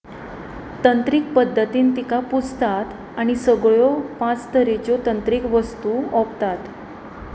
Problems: constant background noise